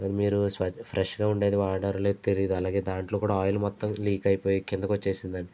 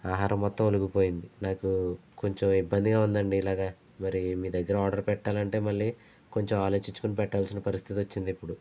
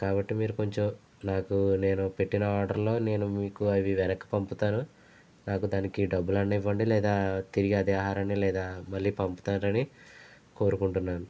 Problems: none marked